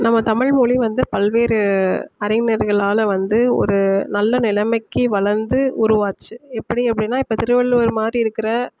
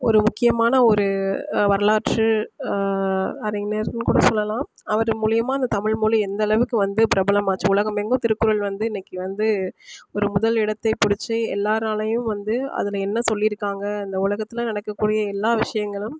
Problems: none marked